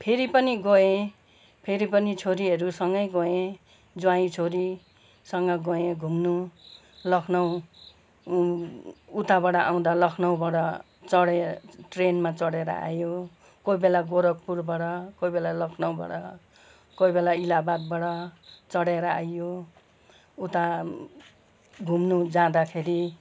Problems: none marked